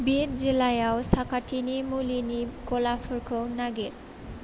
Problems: constant background noise